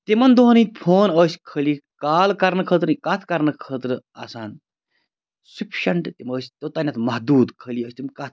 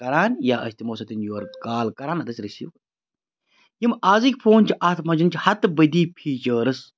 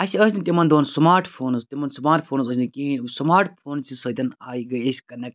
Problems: none marked